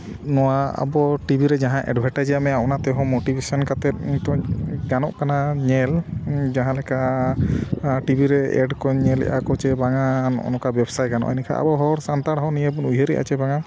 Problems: background sounds at intervals